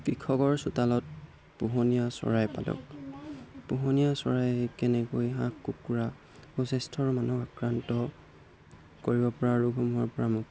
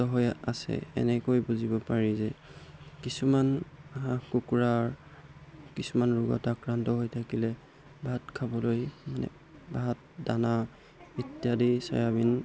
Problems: background sounds at intervals